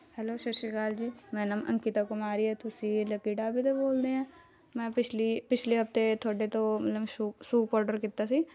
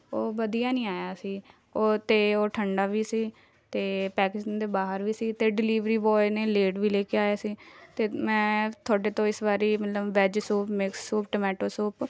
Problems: continuous background conversations